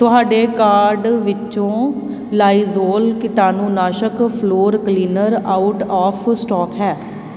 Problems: constant background noise